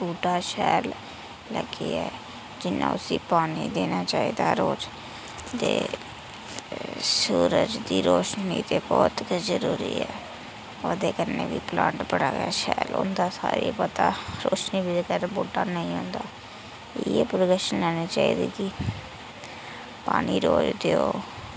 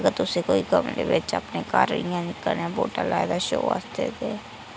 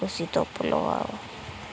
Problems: constant background noise